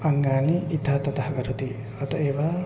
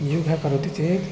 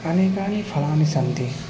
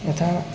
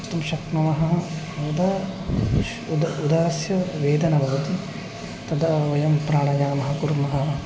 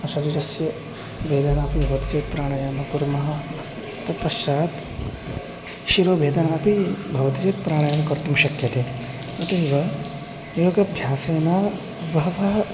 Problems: constant background noise